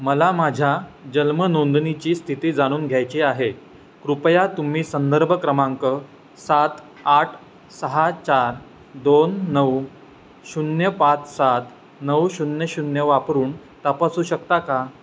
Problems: constant background noise, background conversations at intervals